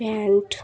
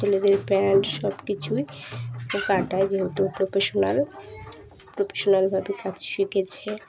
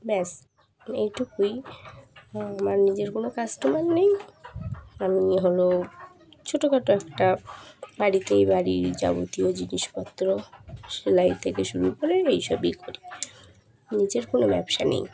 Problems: constant background noise, continuous background conversations